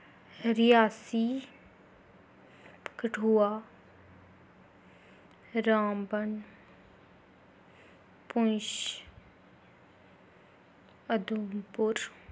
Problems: none marked